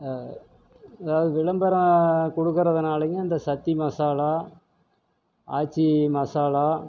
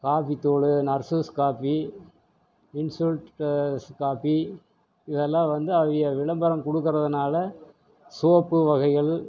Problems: none marked